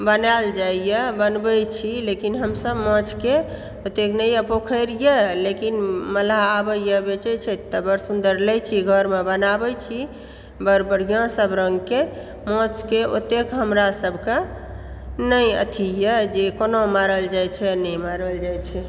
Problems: background sounds at intervals